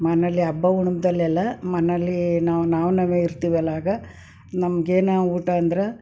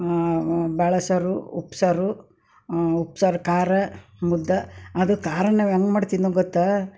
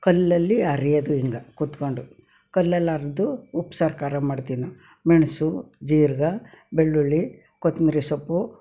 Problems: none marked